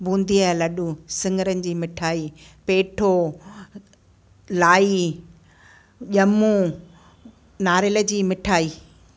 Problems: constant background noise, echo